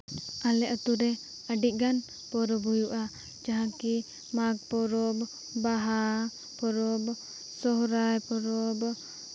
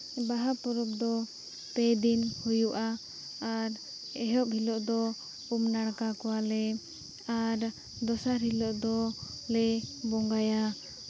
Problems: none marked